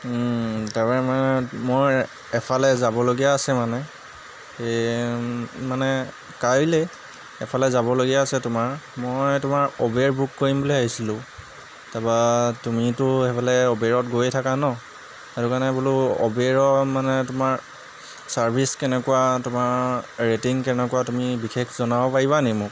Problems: background sounds at intervals